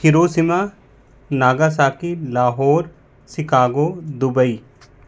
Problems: none marked